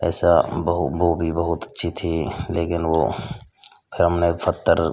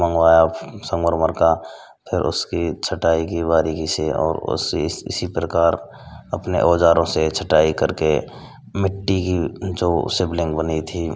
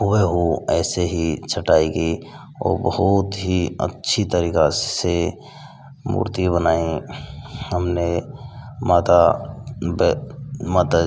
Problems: constant background noise